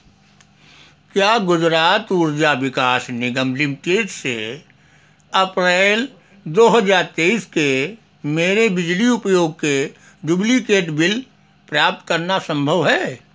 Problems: none marked